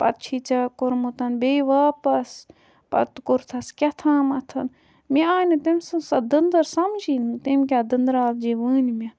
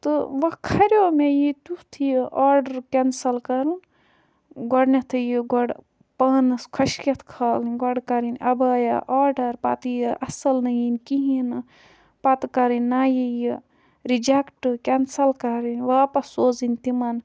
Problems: background sounds at intervals